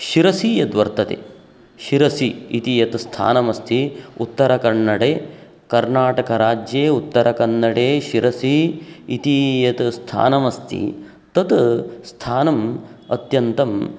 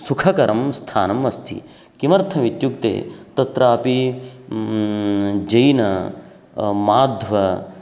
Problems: none marked